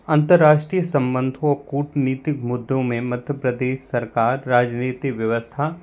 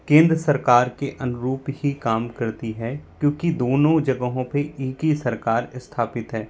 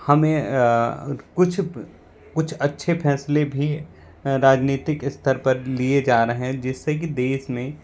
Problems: constant background noise